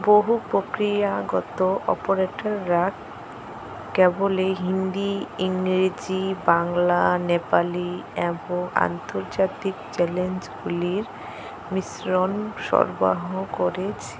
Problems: constant background noise